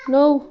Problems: none marked